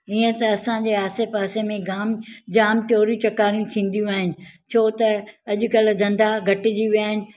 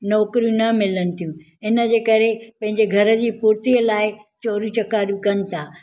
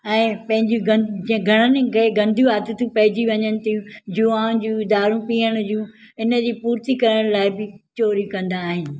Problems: none marked